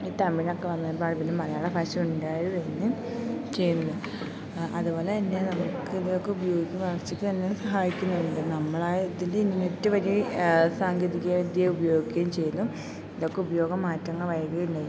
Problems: constant background noise, low volume